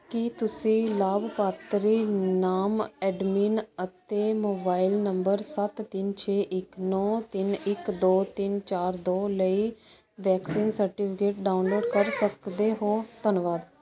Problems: constant background noise